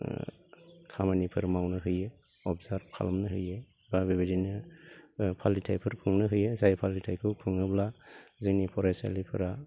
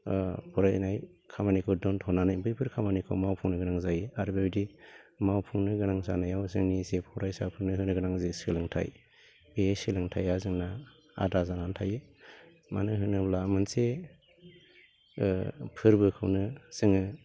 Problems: constant background noise